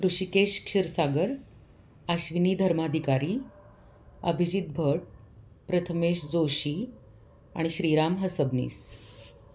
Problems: none marked